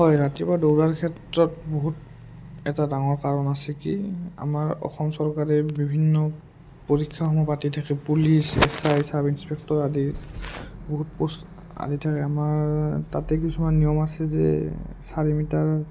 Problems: low volume